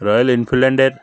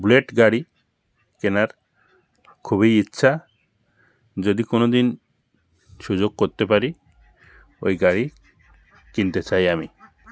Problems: constant background noise, continuous background conversations